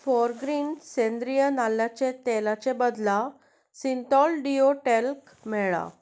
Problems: background sounds at intervals